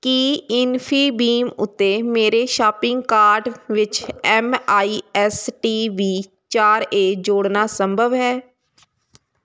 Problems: constant background noise